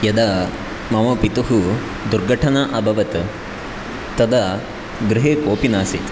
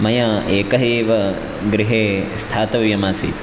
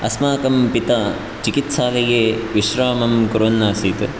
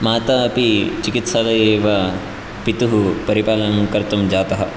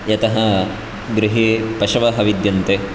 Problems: none marked